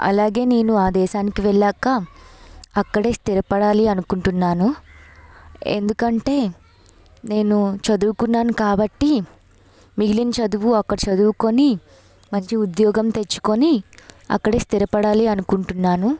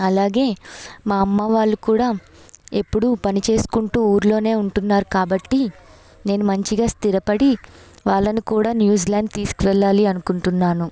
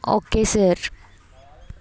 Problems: none marked